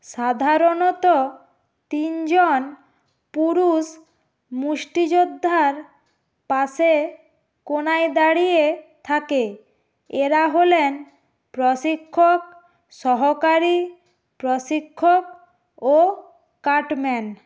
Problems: none marked